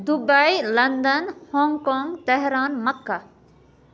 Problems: none marked